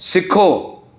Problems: none marked